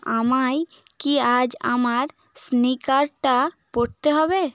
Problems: background conversations at intervals